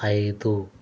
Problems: constant background noise